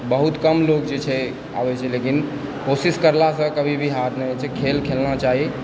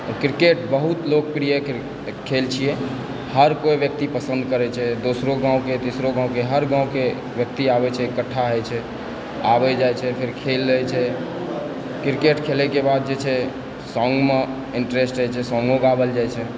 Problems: constant background noise, background conversations at intervals